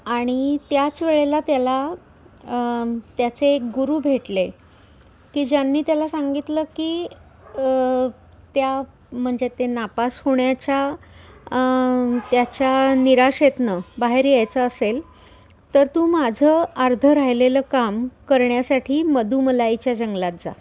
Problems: none marked